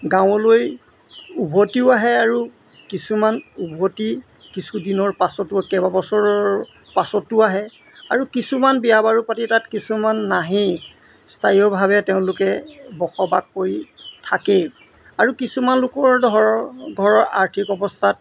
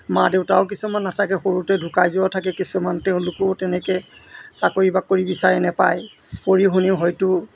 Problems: constant background noise